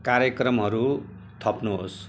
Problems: constant background noise